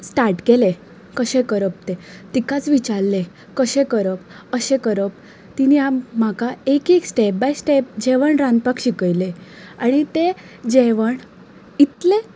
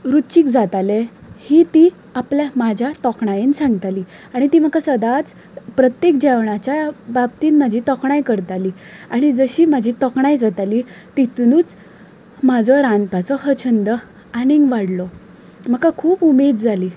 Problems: constant background noise